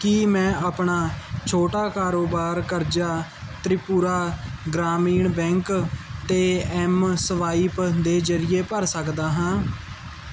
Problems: none marked